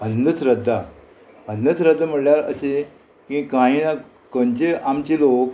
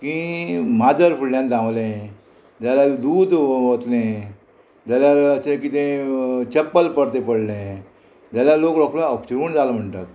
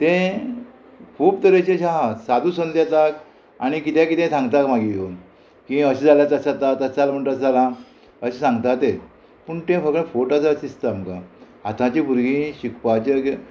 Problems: constant background noise